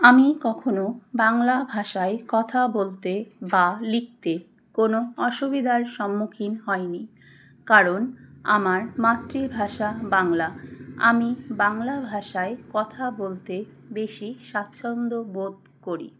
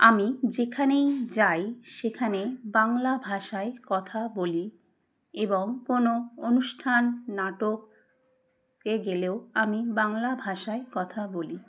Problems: background sounds at intervals